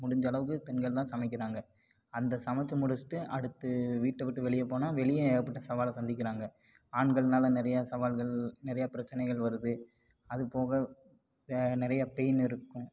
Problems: background sounds at intervals